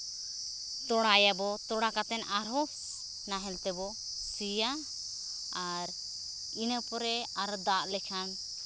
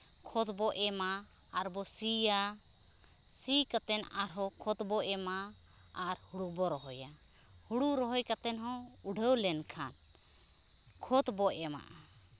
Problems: constant background noise